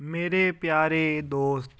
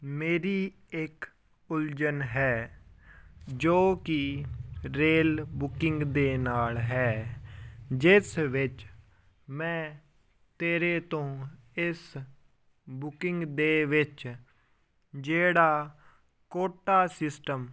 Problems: background conversations at intervals